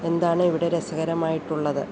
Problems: constant background noise